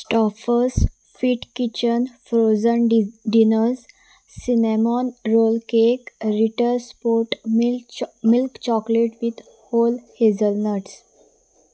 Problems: none marked